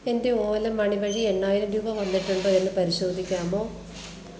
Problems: constant background noise